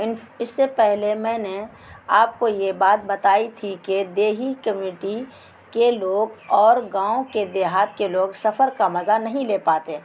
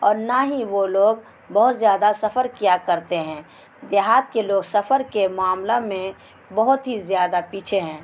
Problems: constant background noise